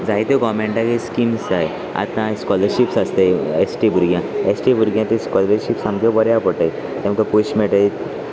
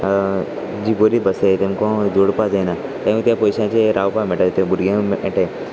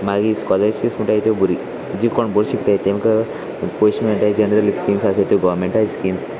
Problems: constant background noise, continuous background conversations